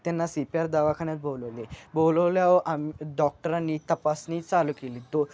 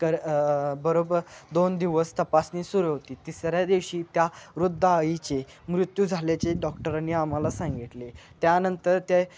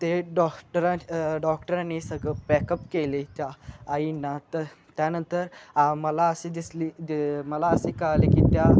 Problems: constant background noise